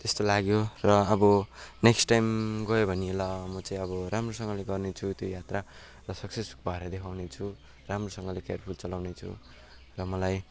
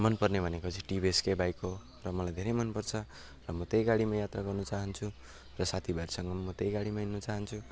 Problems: constant background noise